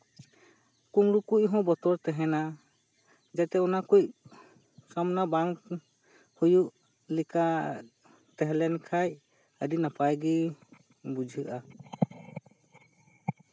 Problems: constant background noise